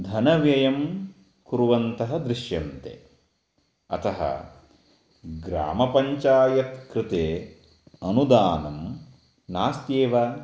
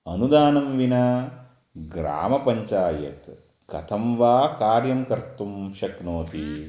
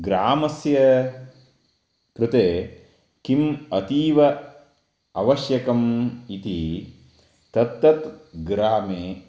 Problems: background sounds at intervals